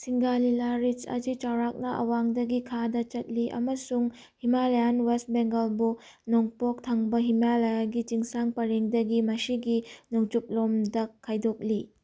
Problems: none marked